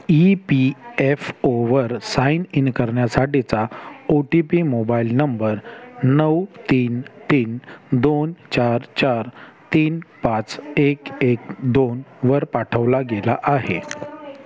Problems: background sounds at intervals, continuous background conversations